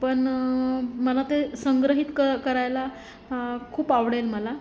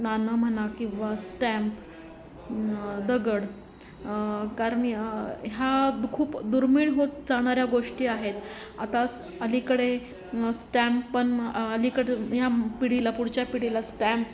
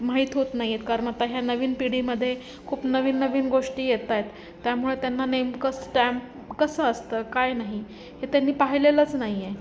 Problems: none marked